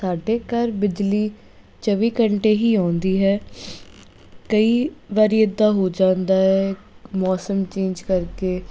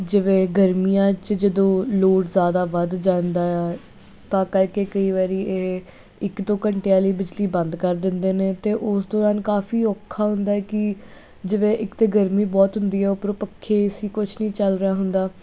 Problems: constant background noise